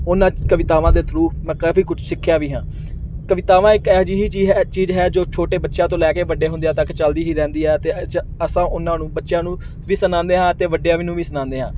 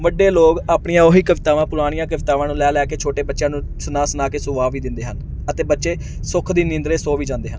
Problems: background sounds at intervals